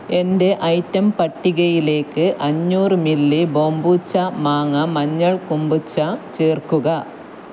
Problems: none marked